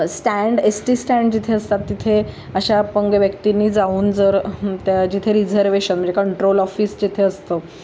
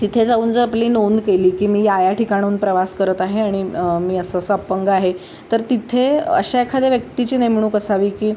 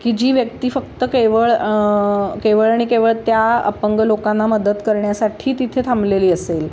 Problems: none marked